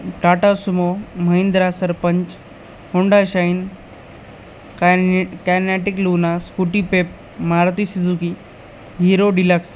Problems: constant background noise